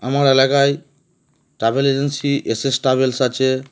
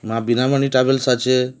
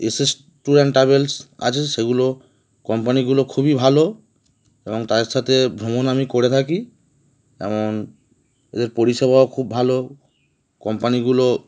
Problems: background sounds at intervals